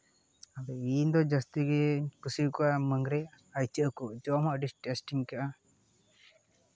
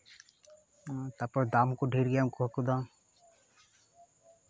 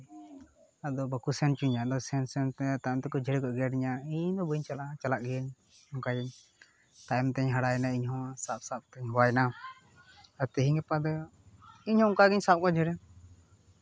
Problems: background sounds at intervals